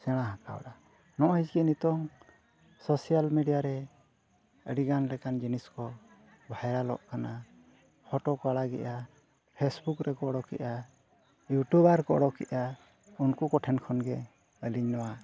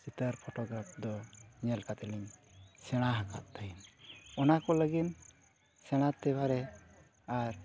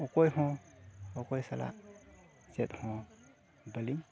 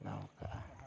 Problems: background sounds at intervals, continuous background conversations